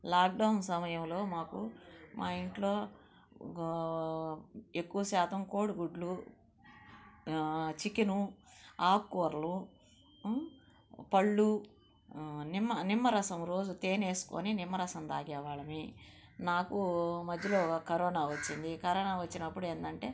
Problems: constant background noise, low volume